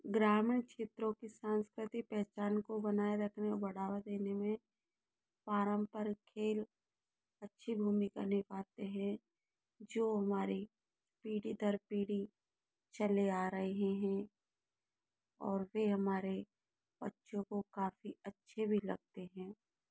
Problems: low volume